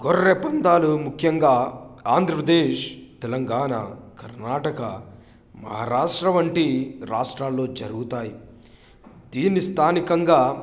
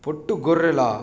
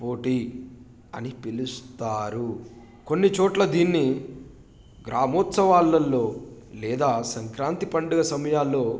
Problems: background sounds at intervals